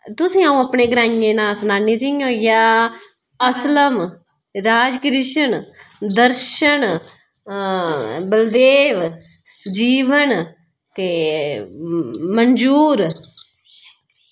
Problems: none marked